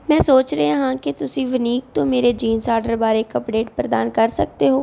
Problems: background sounds at intervals